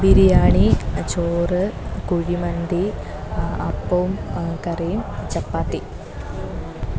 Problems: none marked